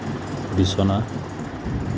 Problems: constant background noise